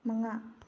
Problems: low volume